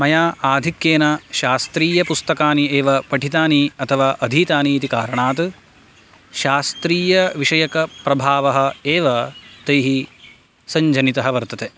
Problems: constant background noise